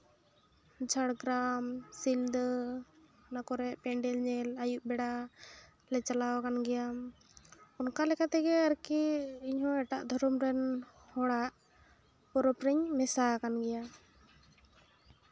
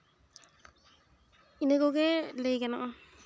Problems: none marked